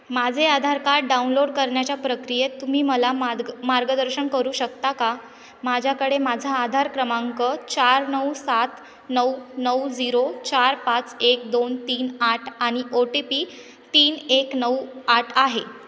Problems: continuous background conversations, echo